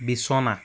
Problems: none marked